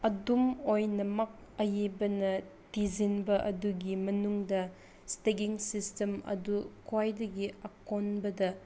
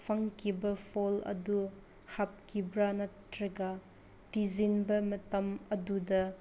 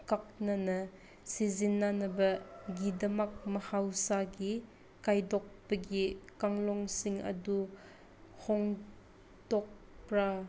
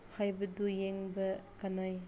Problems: constant background noise